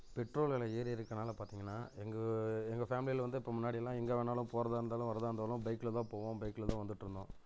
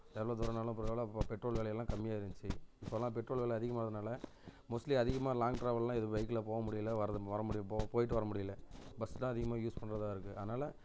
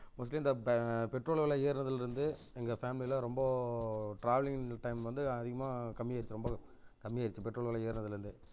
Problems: low volume